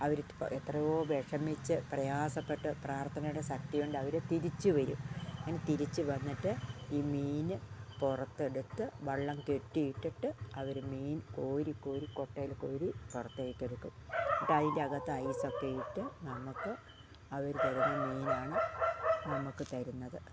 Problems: low volume